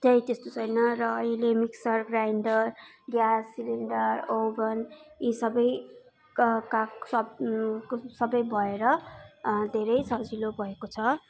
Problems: continuous background conversations